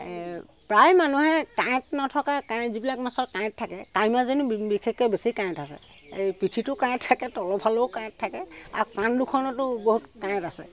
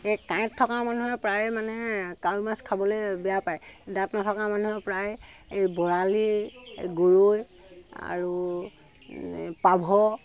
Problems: constant background noise